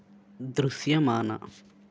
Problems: constant background noise